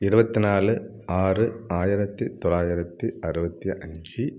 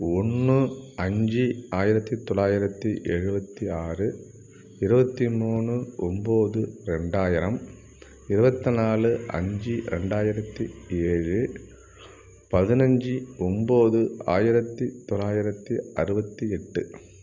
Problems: none marked